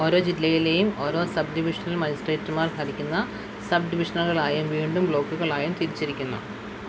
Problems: constant background noise, low volume